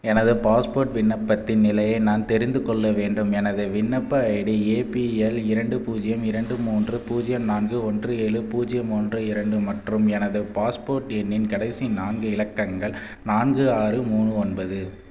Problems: none marked